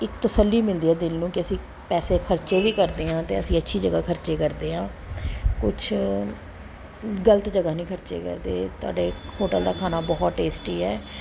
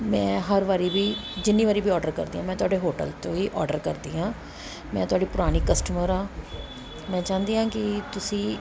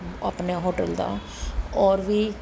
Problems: constant background noise